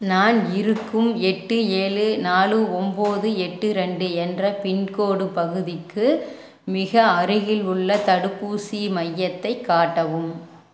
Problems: background sounds at intervals